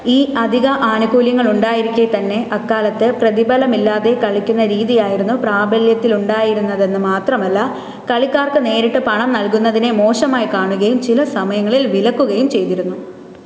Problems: constant background noise